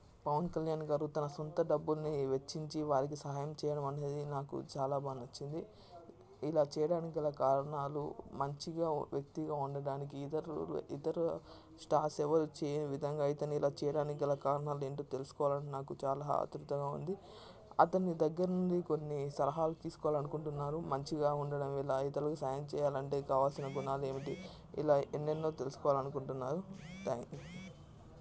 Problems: constant background noise, low volume